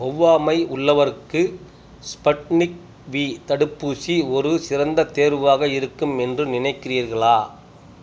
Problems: none marked